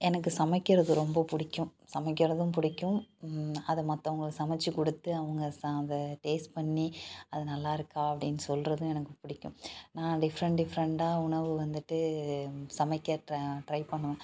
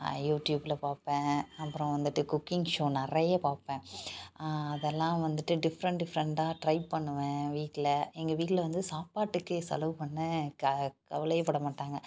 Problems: none marked